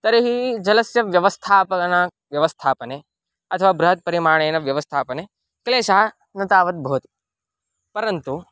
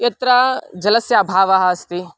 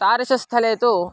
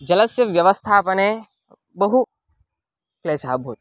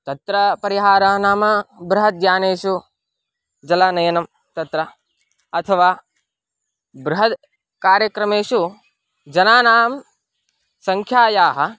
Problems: background sounds at intervals